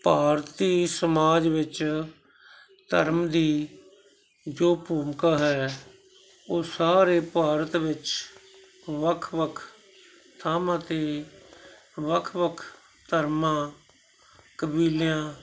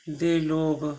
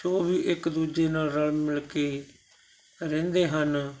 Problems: continuous background conversations